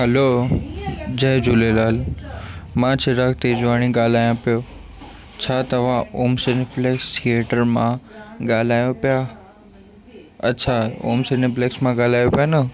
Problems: constant background noise, echo